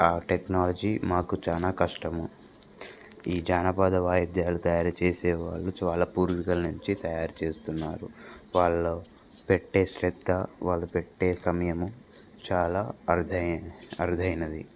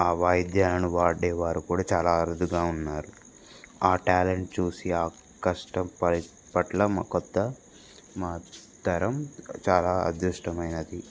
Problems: constant background noise